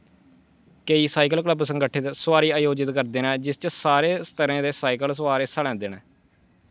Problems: none marked